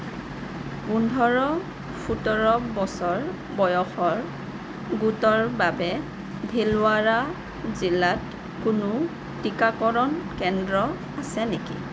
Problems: constant background noise